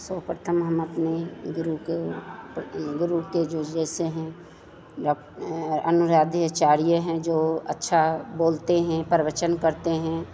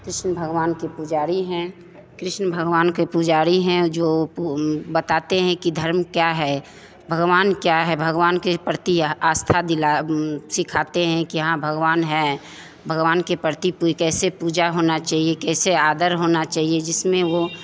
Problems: constant background noise, background conversations at intervals